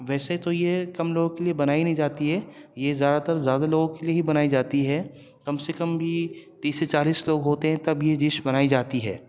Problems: none marked